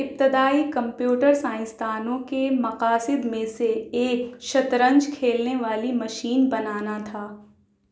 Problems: none marked